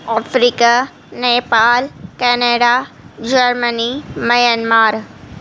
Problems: constant background noise